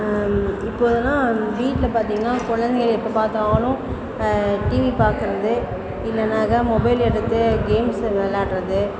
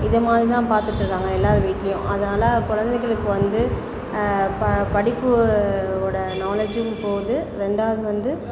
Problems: constant background noise, background conversations at intervals